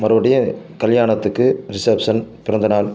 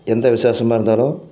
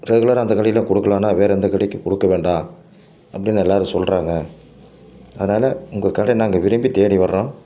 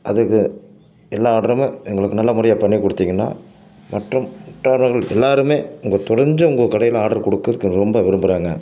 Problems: none marked